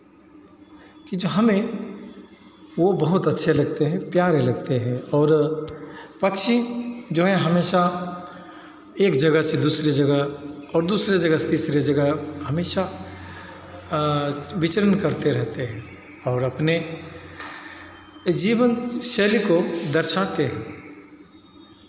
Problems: constant background noise, continuous background conversations, echo